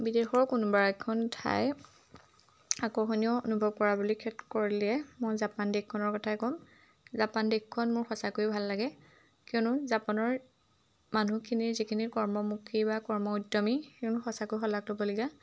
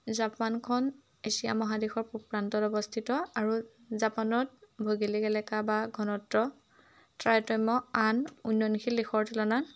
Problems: none marked